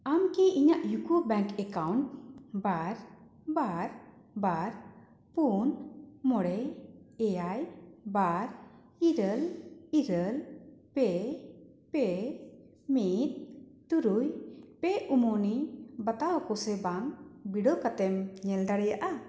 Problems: constant background noise